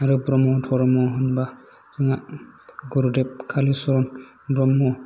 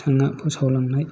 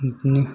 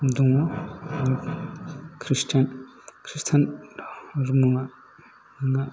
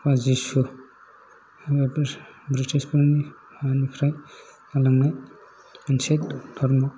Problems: low volume